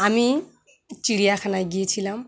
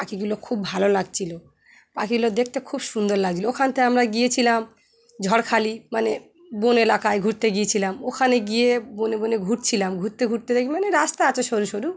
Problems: none marked